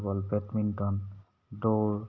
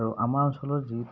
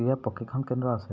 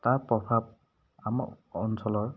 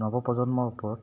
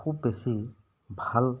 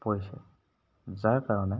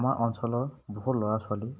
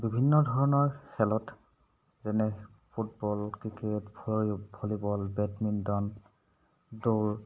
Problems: background sounds at intervals